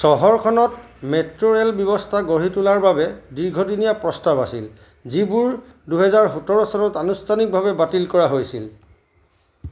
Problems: constant background noise